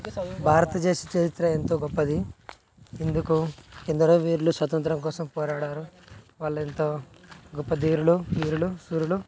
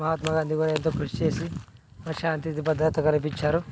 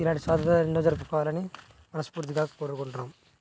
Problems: background sounds at intervals, background conversations at intervals, low volume